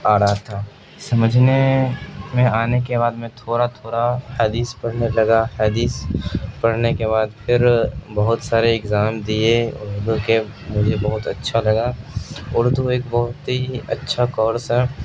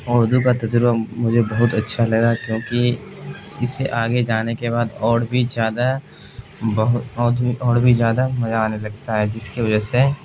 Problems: constant background noise